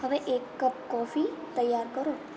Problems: background sounds at intervals, background conversations at intervals